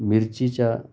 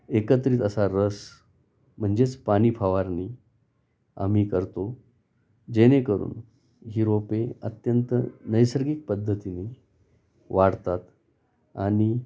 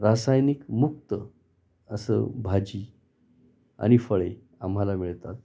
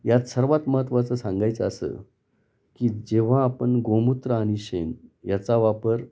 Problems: none marked